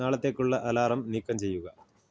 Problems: low volume